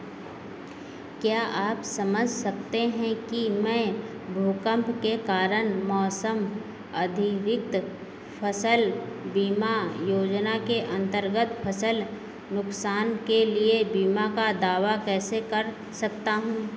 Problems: none marked